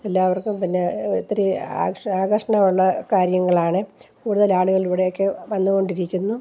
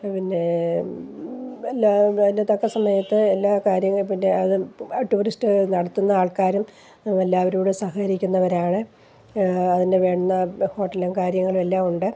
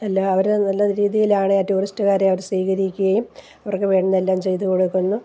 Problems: low volume